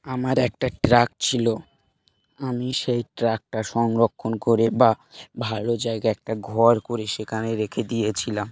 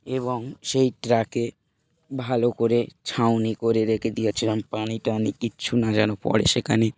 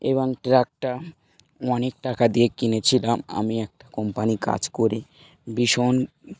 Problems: background sounds at intervals